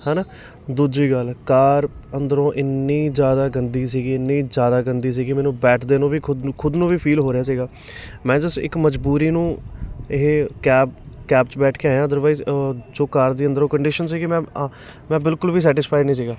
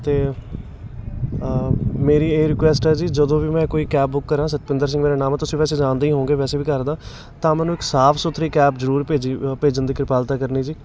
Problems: constant background noise, background conversations at intervals